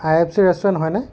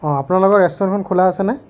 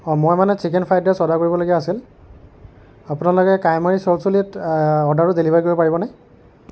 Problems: none marked